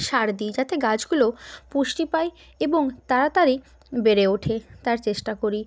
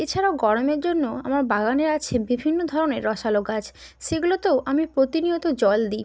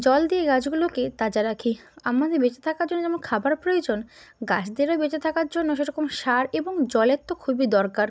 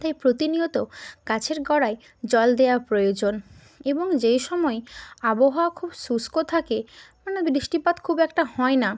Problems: none marked